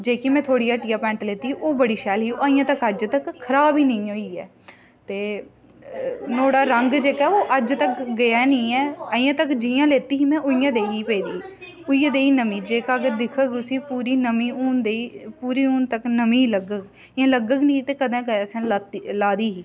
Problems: constant background noise, background conversations at intervals